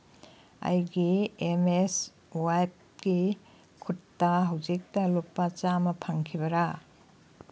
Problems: background sounds at intervals